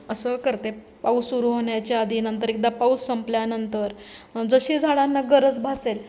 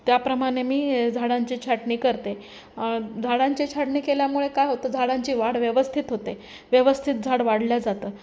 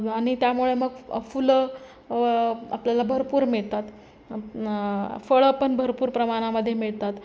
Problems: constant background noise, background conversations at intervals